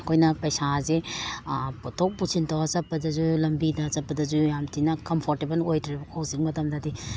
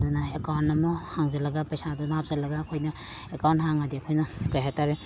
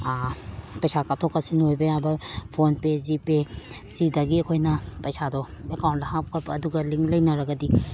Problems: background sounds at intervals